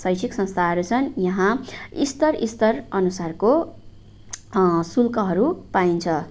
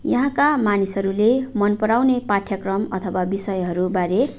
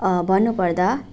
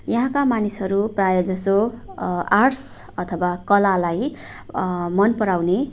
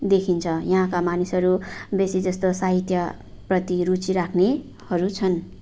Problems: none marked